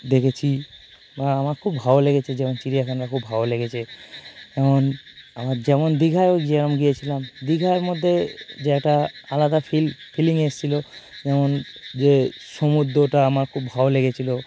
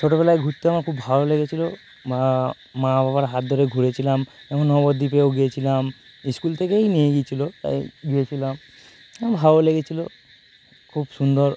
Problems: none marked